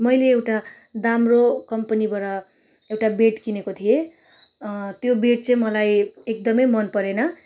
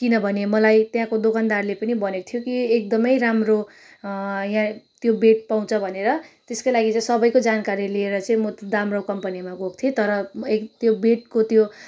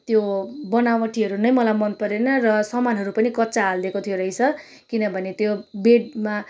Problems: none marked